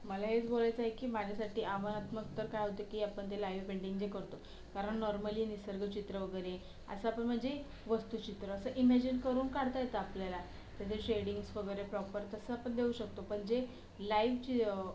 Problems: constant background noise